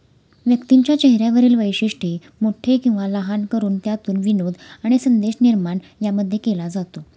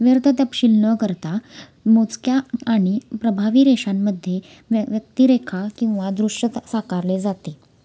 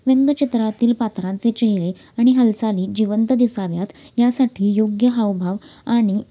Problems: constant background noise